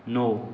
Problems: constant background noise